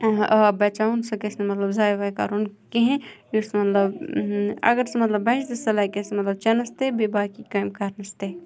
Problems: background sounds at intervals, background conversations at intervals